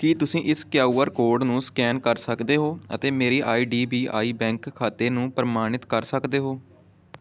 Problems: background conversations at intervals